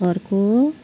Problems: constant background noise